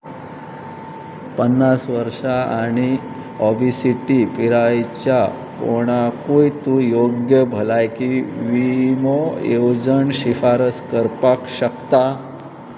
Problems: constant background noise, background conversations at intervals